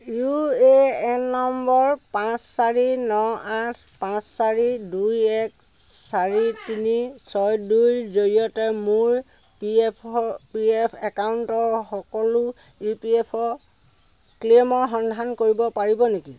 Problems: none marked